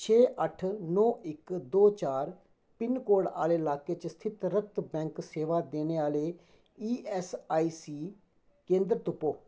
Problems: none marked